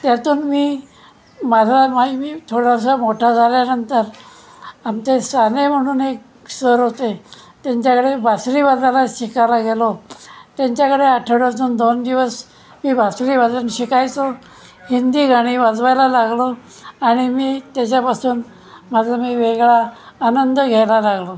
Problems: constant background noise, continuous background conversations